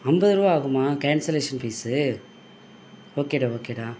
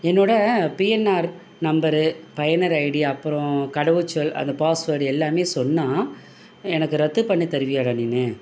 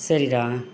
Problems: none marked